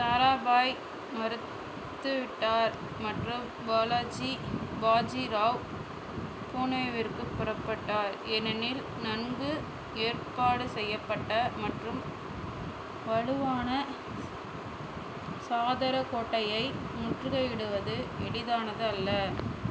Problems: constant background noise